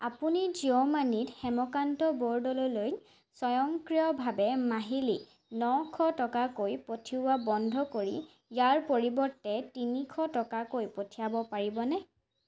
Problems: background sounds at intervals